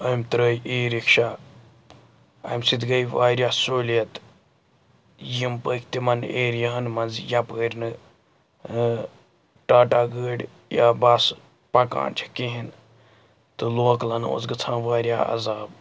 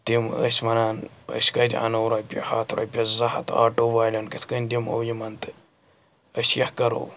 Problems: background sounds at intervals, background conversations at intervals